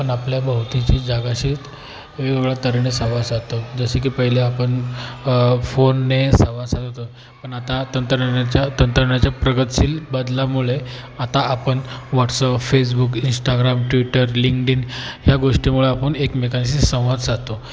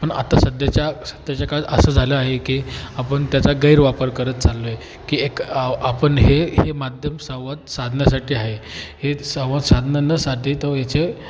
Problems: constant background noise, continuous background conversations